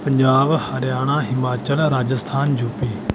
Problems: none marked